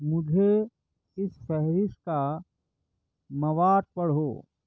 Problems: none marked